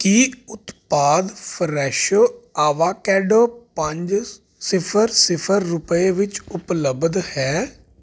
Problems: constant background noise